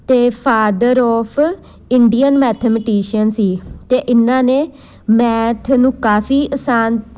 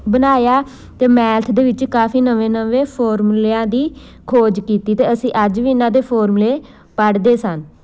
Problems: none marked